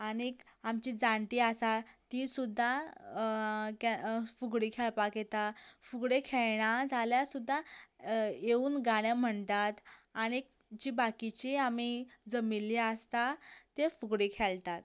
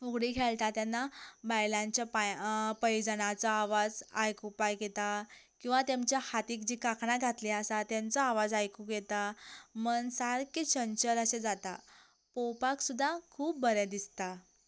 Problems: none marked